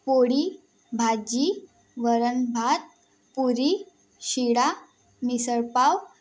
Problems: background sounds at intervals